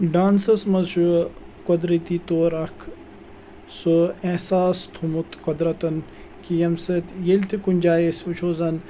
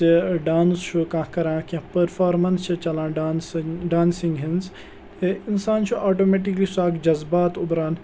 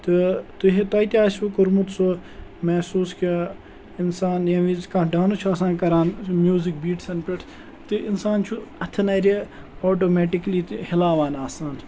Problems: none marked